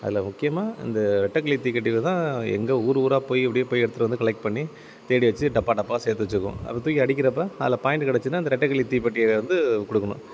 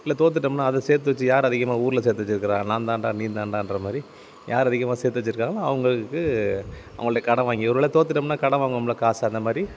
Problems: none marked